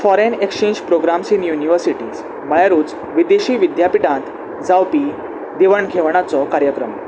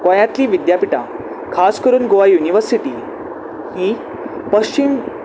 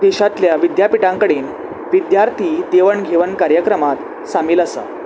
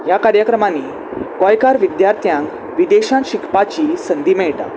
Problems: constant background noise